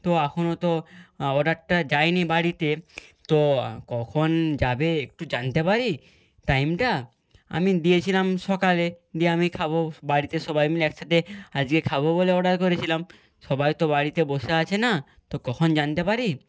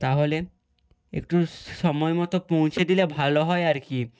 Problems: background sounds at intervals